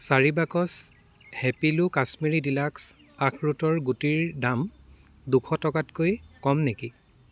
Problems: constant background noise, continuous background conversations